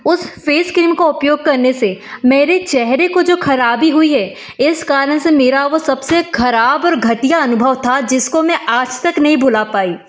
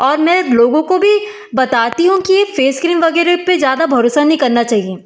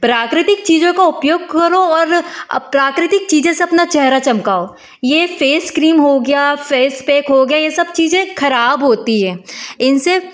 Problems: background sounds at intervals